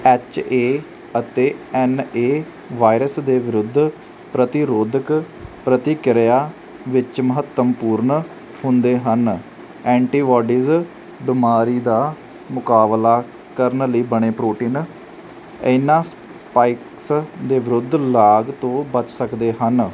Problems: none marked